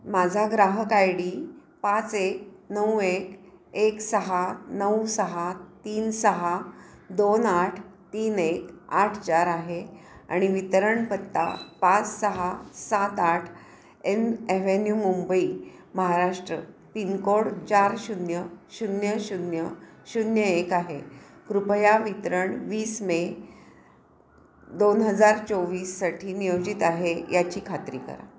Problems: none marked